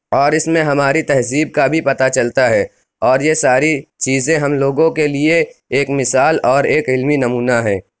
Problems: constant background noise